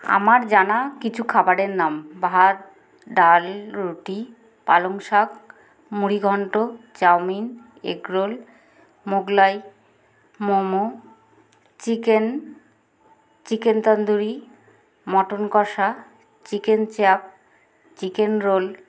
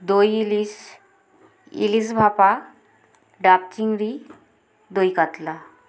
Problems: constant background noise, background conversations at intervals